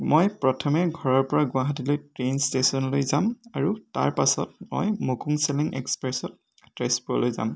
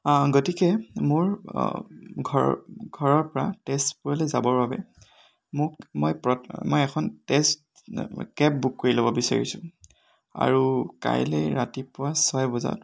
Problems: none marked